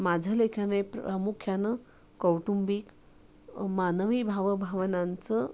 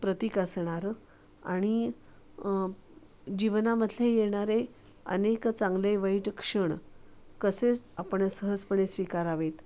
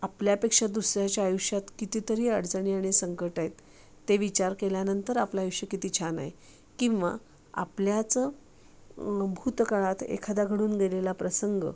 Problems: constant background noise